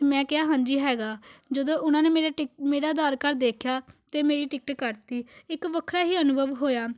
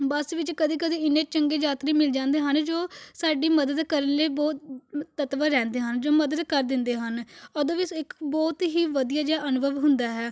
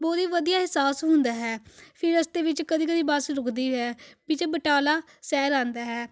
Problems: background sounds at intervals